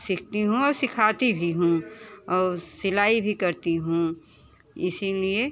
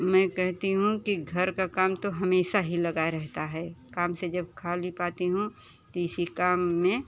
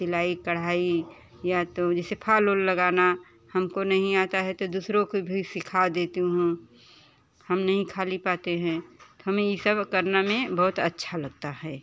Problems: constant background noise, continuous background conversations